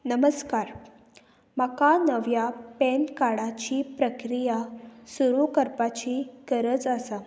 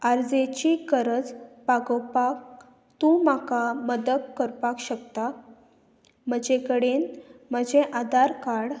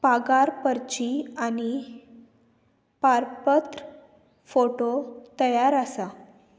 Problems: constant background noise